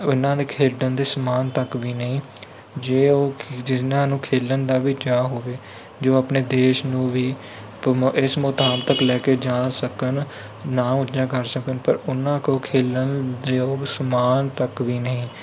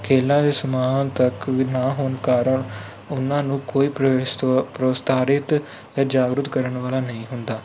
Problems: constant background noise